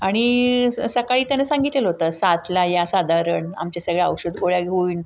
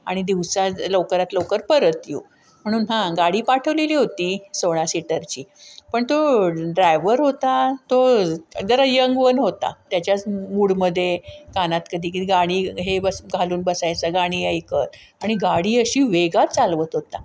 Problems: none marked